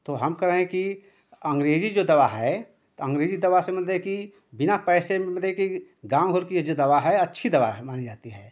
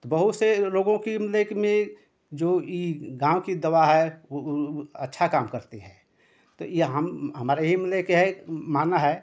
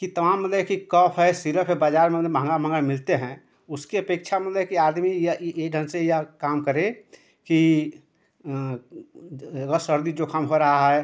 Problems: none marked